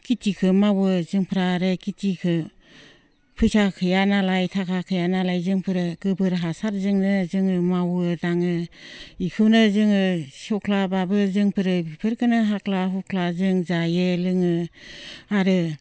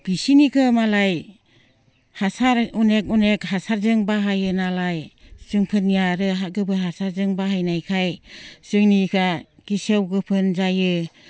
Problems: low volume